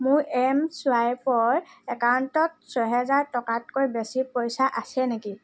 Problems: none marked